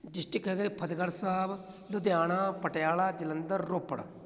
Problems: none marked